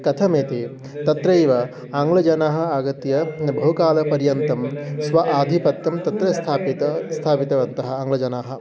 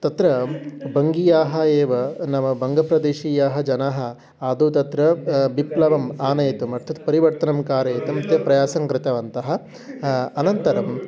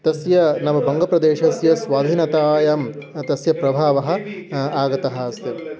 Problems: background sounds at intervals, continuous background conversations